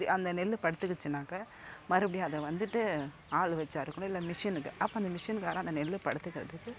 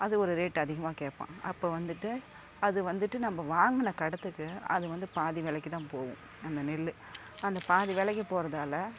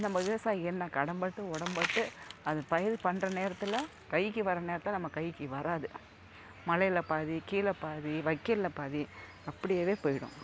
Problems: none marked